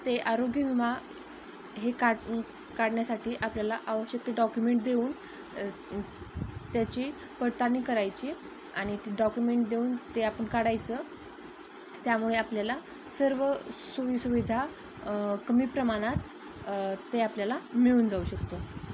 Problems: constant background noise